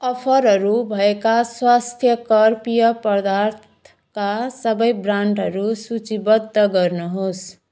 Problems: background sounds at intervals